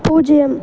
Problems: background sounds at intervals